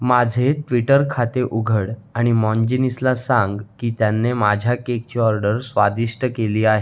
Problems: constant background noise, background conversations at intervals